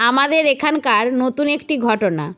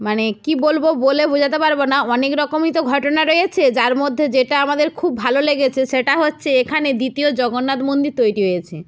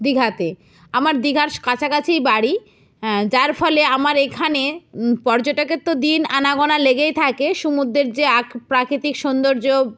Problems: none marked